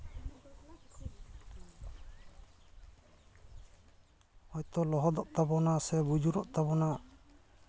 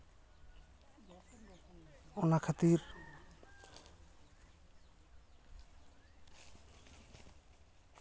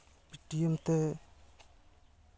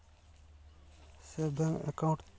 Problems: none marked